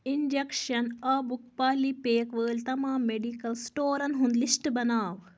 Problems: constant background noise